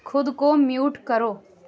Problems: constant background noise